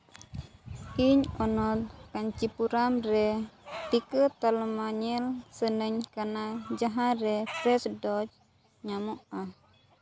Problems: background sounds at intervals